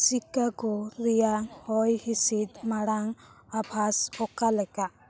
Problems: constant background noise, background conversations at intervals